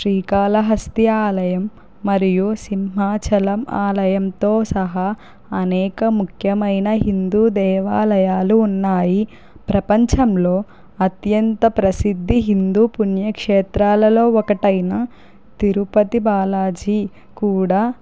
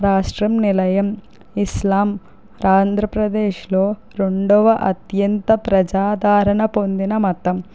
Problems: none marked